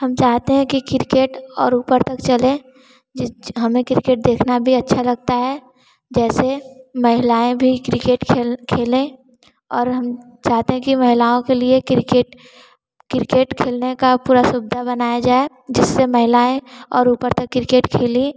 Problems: constant background noise